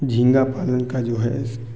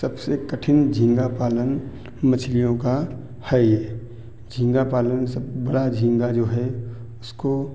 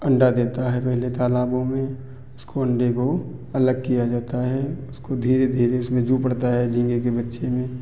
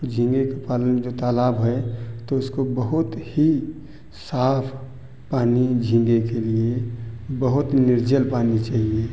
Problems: none marked